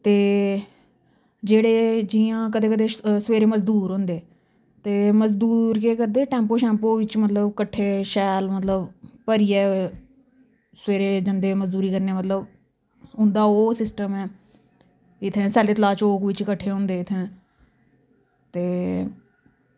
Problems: none marked